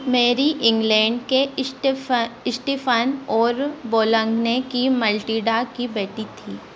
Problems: constant background noise